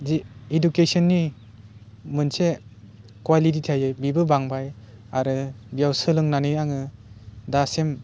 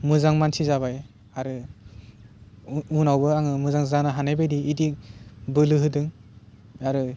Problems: low volume